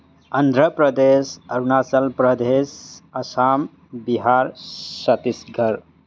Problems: background sounds at intervals